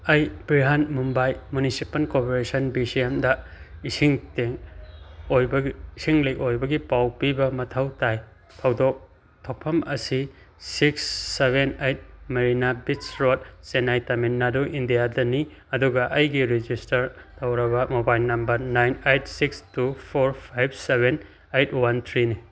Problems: none marked